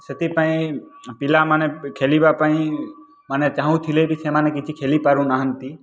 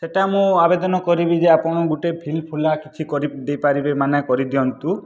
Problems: background sounds at intervals